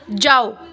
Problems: background conversations at intervals